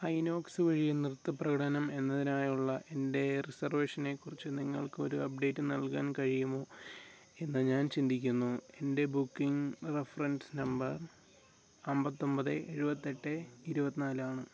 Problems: none marked